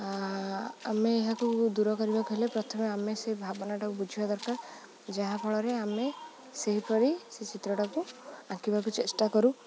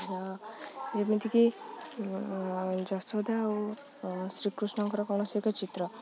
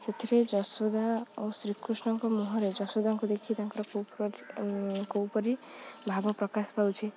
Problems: low volume